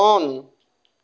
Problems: none marked